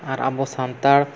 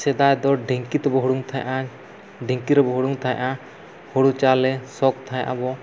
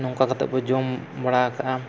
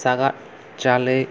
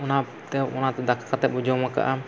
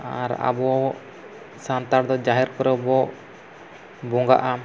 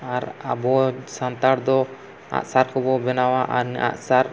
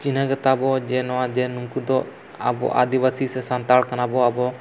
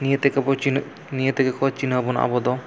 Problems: constant background noise